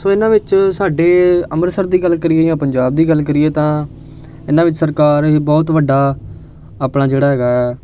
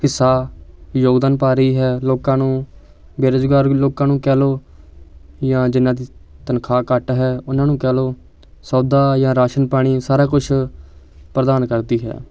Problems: constant background noise